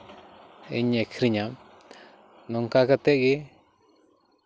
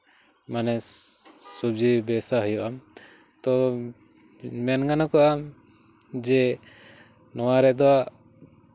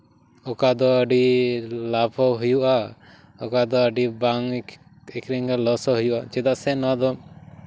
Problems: background sounds at intervals